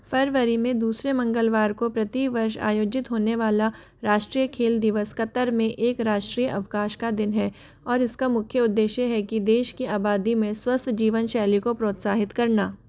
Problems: constant background noise